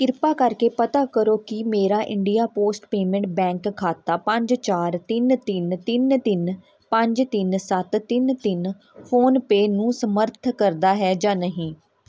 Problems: none marked